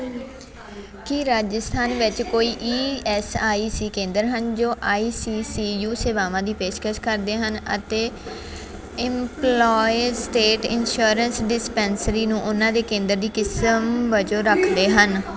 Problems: continuous background conversations